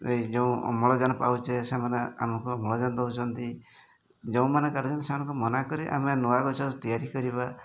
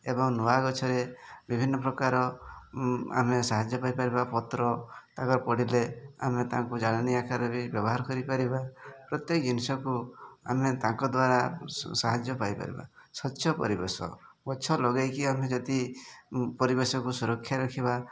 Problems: none marked